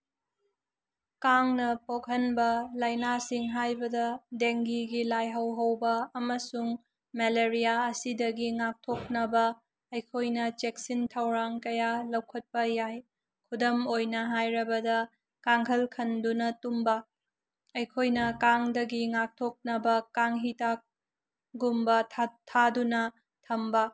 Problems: none marked